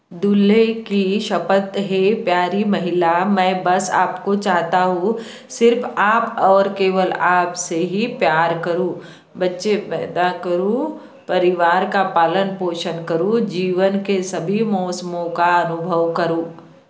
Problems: none marked